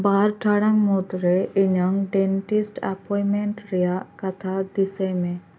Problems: constant background noise